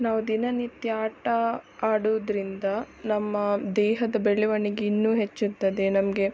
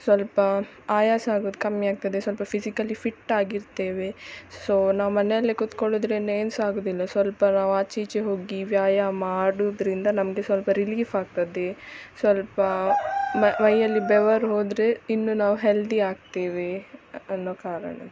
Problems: background sounds at intervals